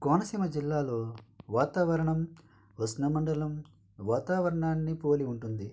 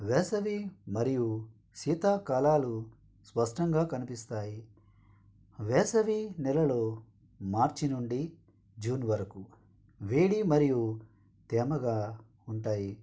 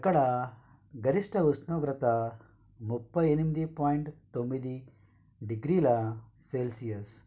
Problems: none marked